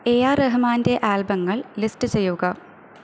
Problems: constant background noise